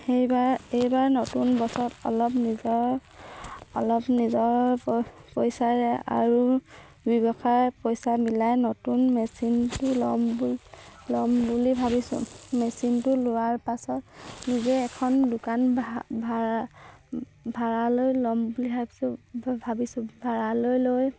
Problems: background sounds at intervals